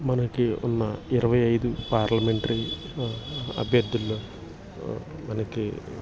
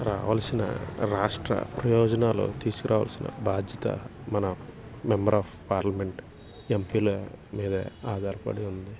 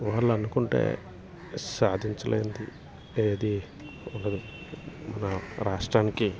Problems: constant background noise